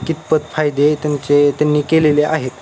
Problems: constant background noise